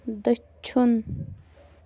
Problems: none marked